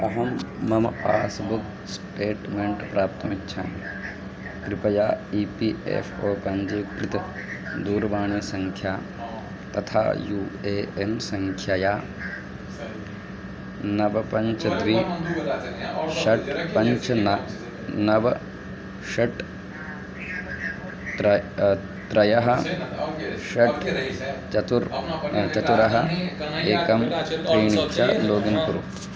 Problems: continuous background conversations